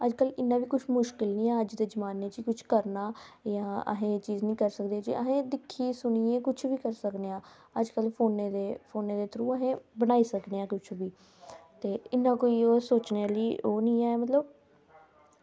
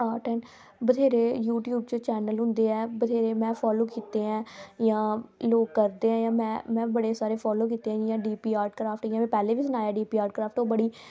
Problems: background sounds at intervals